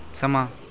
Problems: background sounds at intervals